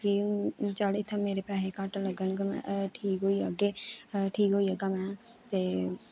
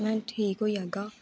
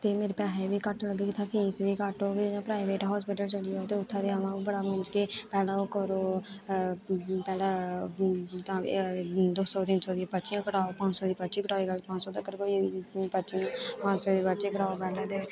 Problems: constant background noise